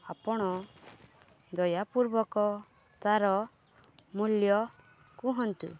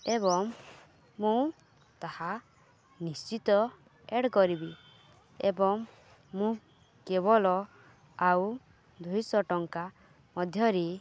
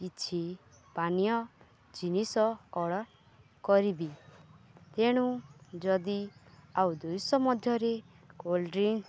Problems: none marked